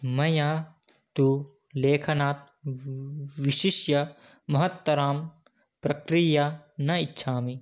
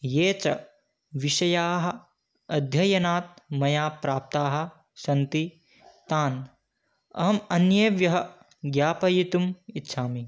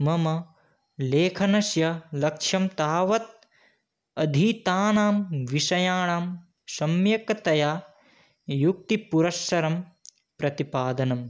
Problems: none marked